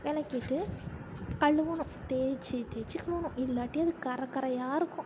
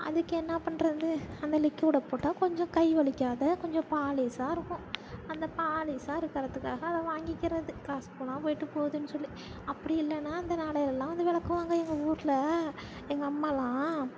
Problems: constant background noise, low volume